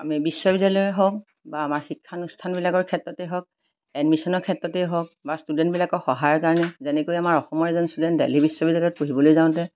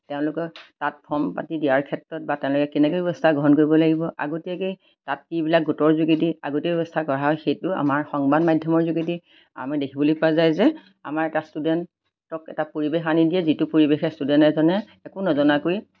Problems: none marked